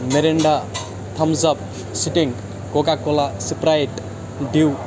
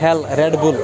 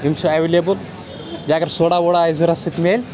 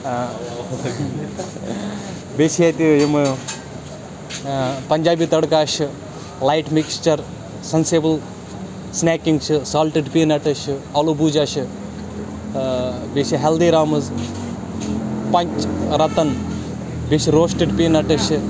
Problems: constant background noise